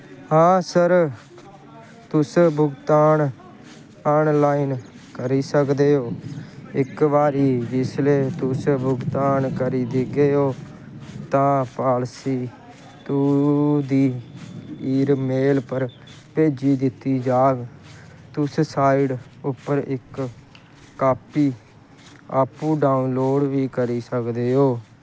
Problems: constant background noise